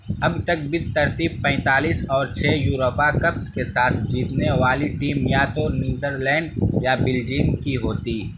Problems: constant background noise